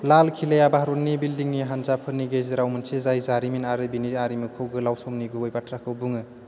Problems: constant background noise